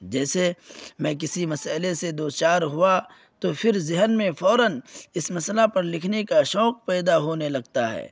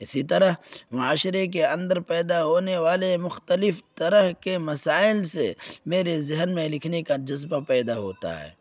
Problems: none marked